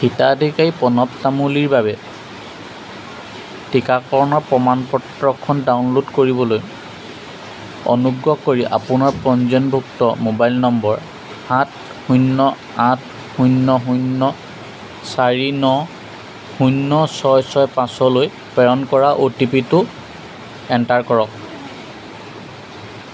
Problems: constant background noise, background conversations at intervals